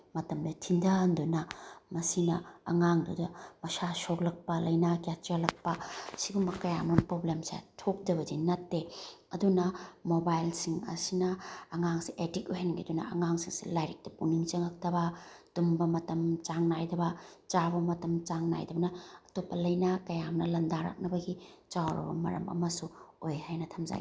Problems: background sounds at intervals